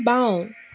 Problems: constant background noise